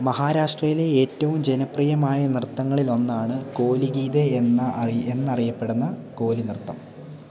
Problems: none marked